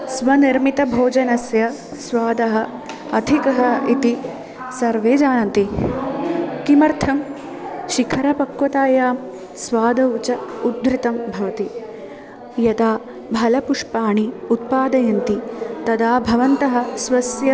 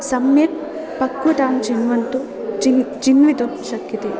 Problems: none marked